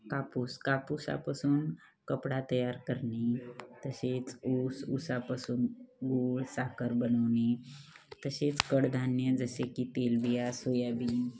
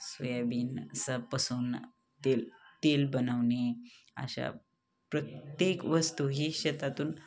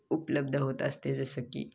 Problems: constant background noise, background conversations at intervals